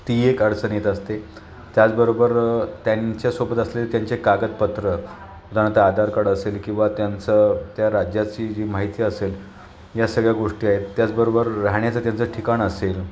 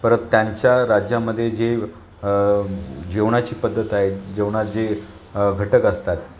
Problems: constant background noise, continuous background conversations